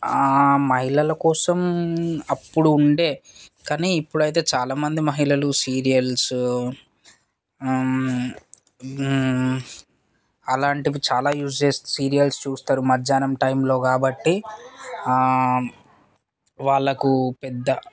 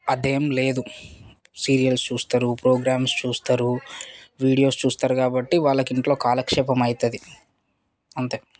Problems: background sounds at intervals, background conversations at intervals